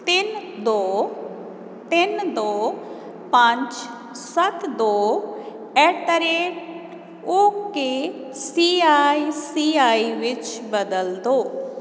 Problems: none marked